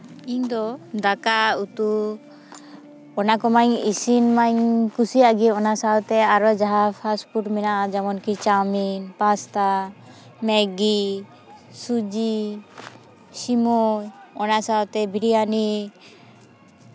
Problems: none marked